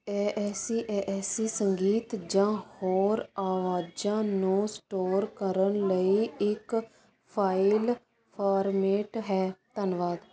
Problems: constant background noise